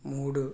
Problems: none marked